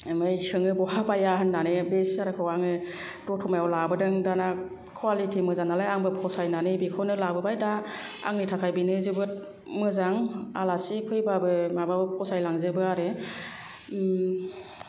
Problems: low volume